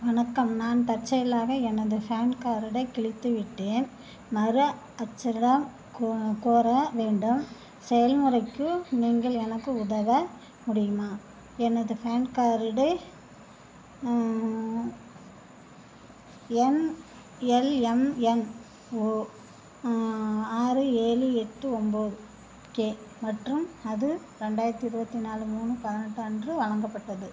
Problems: none marked